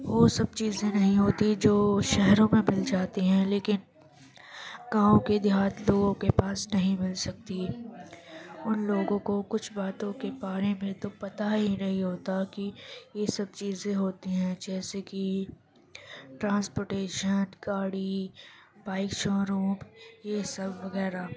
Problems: background conversations at intervals